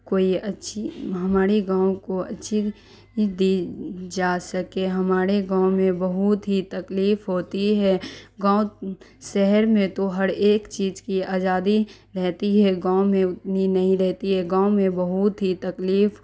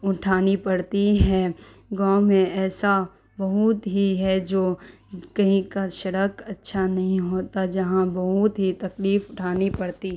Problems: constant background noise